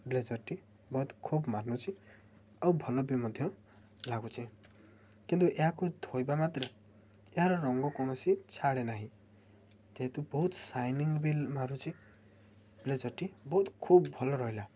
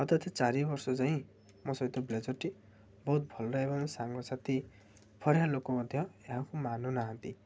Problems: low volume